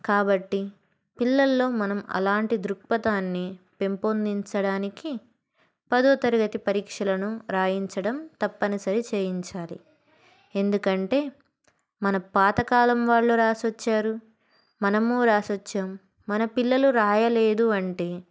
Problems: background sounds at intervals